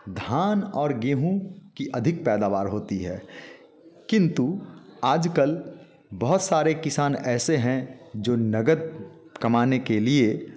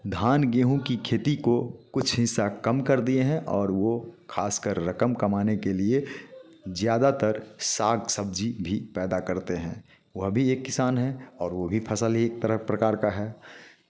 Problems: constant background noise